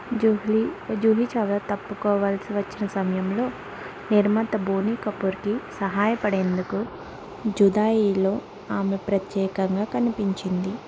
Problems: constant background noise